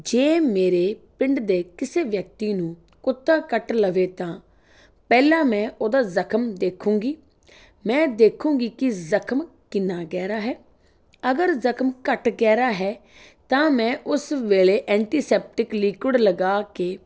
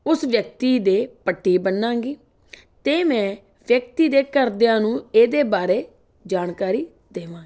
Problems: none marked